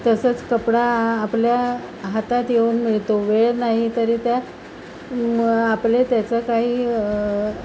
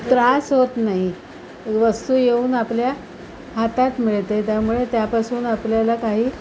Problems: constant background noise